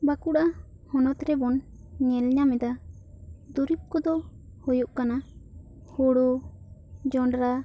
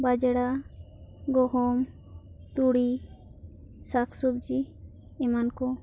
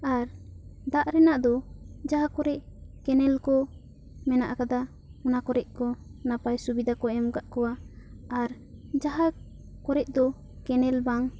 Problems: none marked